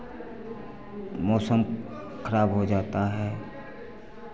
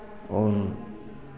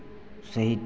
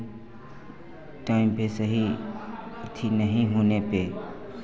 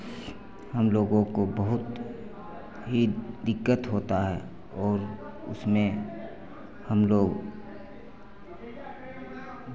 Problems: constant background noise